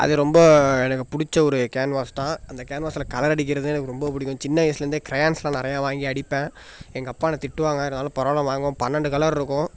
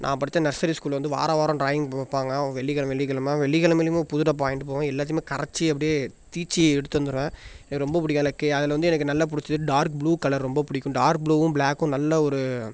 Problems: none marked